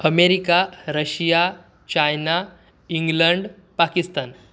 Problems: none marked